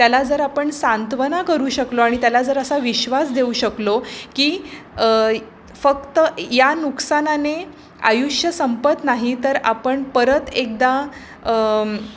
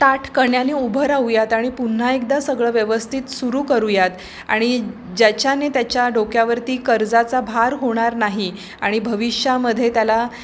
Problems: constant background noise, background conversations at intervals